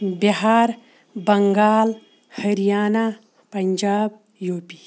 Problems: background sounds at intervals